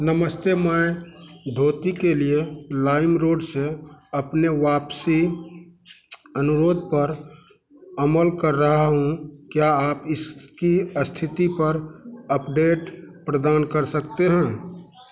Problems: none marked